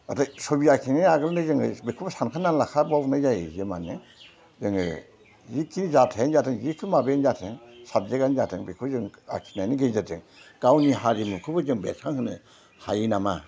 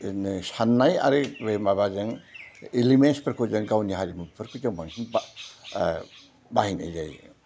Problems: none marked